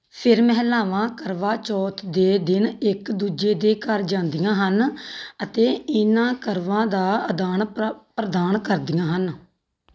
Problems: background sounds at intervals